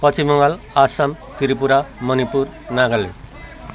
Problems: constant background noise, continuous background conversations